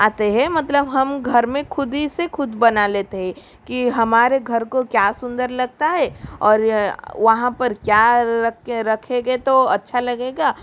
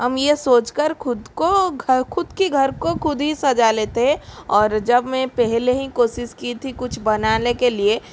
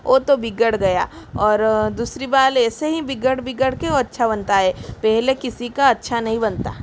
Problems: constant background noise